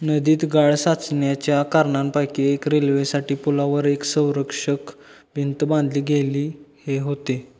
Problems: background sounds at intervals